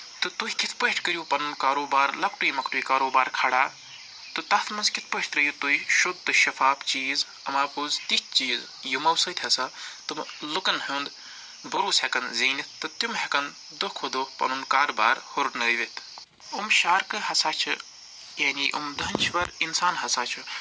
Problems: background sounds at intervals